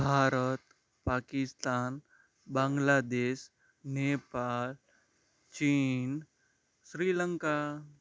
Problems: background sounds at intervals